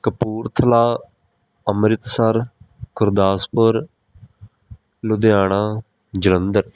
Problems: background sounds at intervals